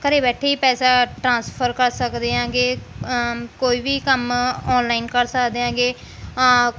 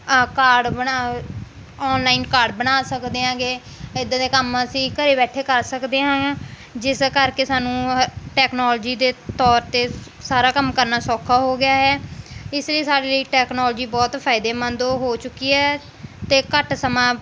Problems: background sounds at intervals